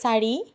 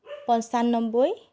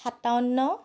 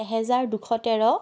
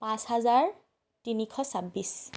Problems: background sounds at intervals